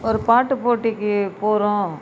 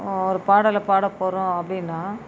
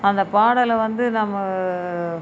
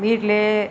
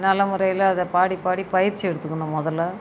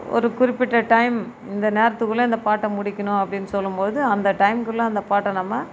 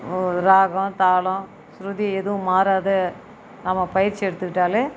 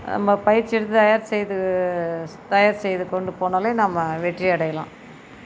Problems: background sounds at intervals